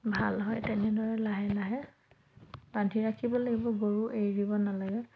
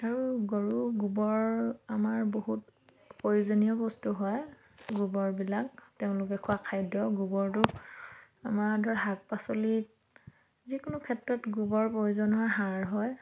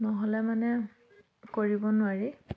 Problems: none marked